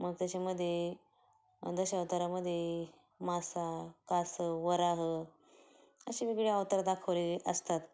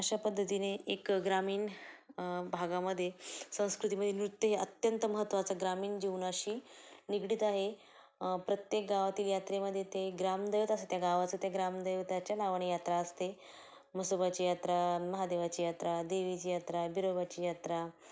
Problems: low volume